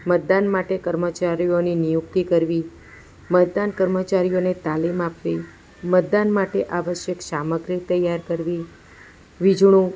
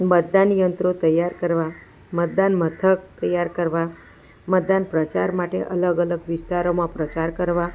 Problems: background conversations at intervals